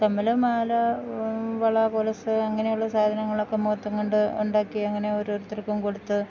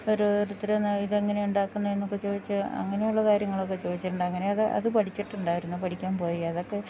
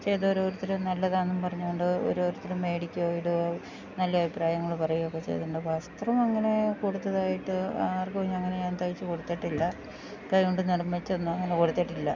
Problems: none marked